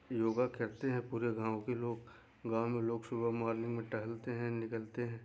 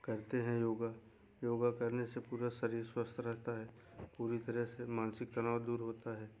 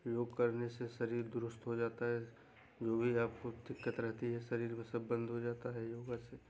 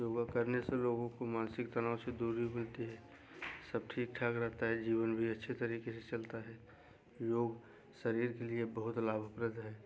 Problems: none marked